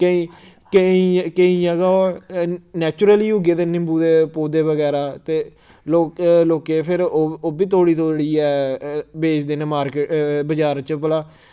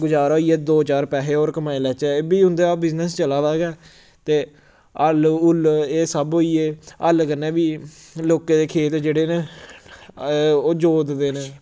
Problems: background sounds at intervals